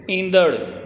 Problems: constant background noise